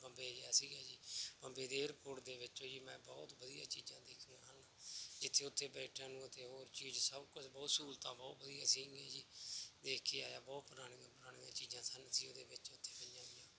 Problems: background sounds at intervals